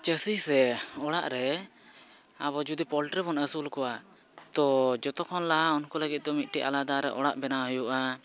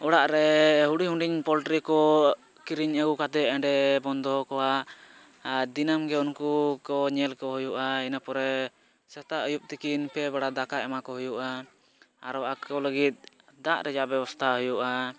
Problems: none marked